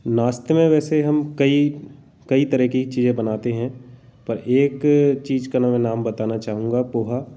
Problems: none marked